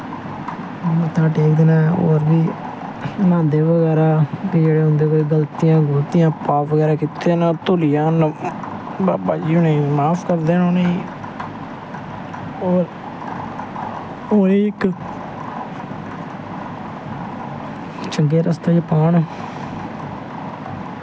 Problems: constant background noise, low volume